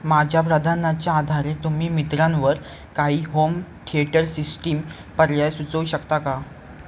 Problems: background sounds at intervals